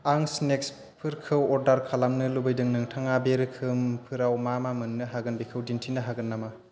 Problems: constant background noise